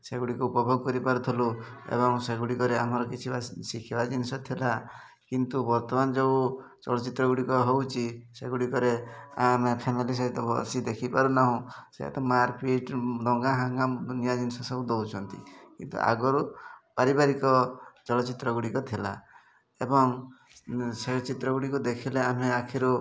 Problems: constant background noise, continuous background conversations